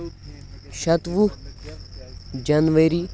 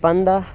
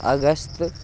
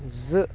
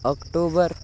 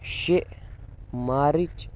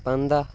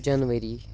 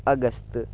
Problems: constant background noise, continuous background conversations